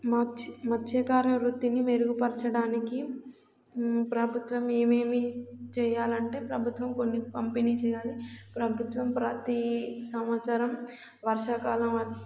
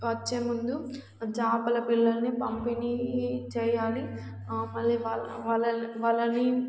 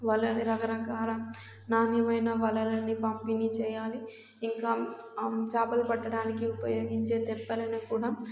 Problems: background sounds at intervals